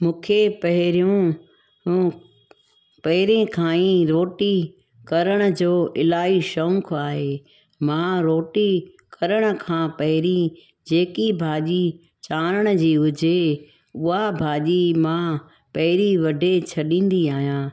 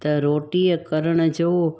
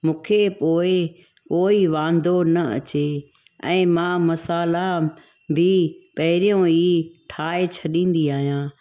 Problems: background sounds at intervals